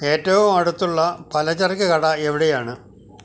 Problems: none marked